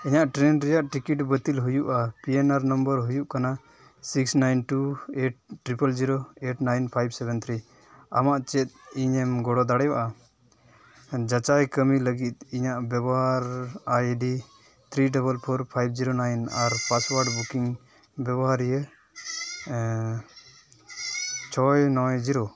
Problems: constant background noise